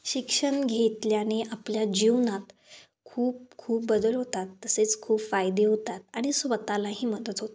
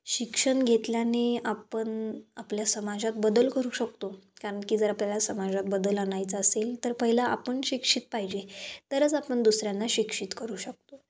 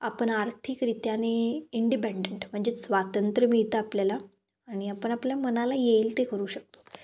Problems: background sounds at intervals